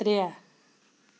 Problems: none marked